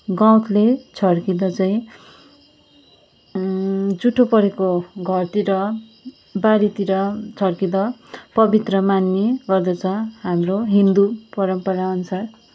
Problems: background sounds at intervals